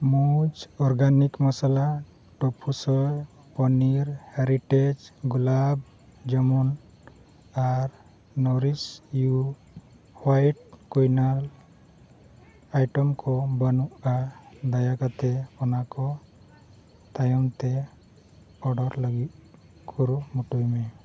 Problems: none marked